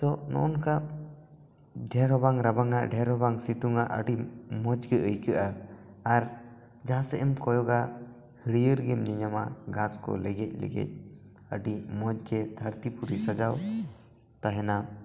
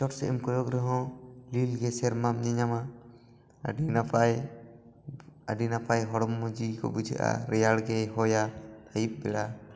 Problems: echo